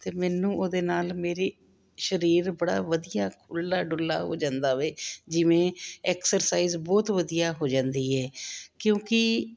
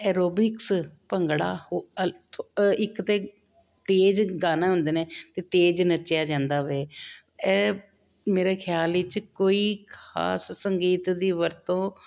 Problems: none marked